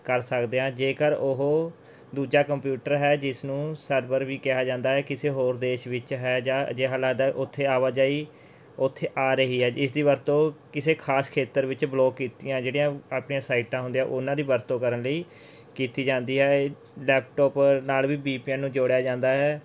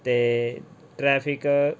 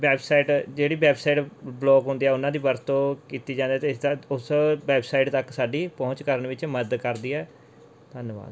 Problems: background sounds at intervals